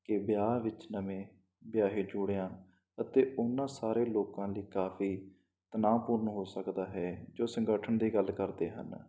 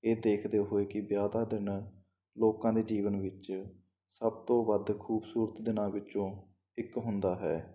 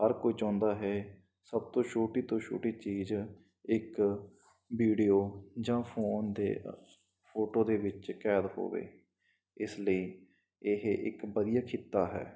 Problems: none marked